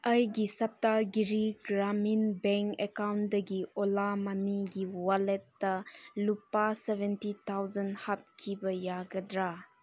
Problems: background sounds at intervals